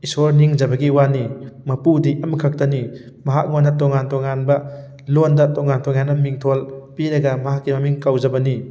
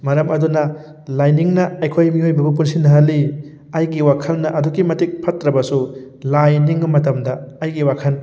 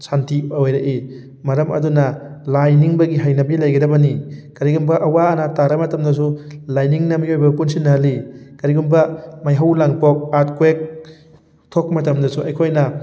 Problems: background sounds at intervals